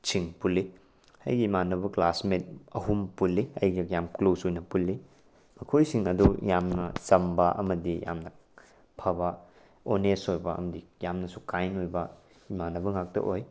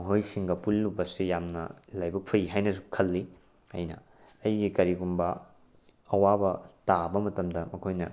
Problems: background sounds at intervals